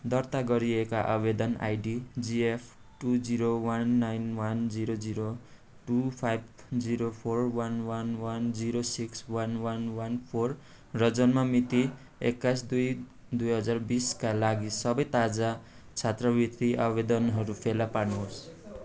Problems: none marked